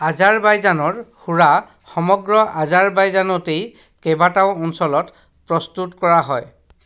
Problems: none marked